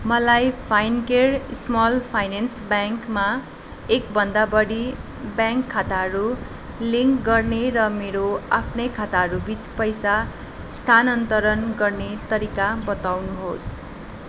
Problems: constant background noise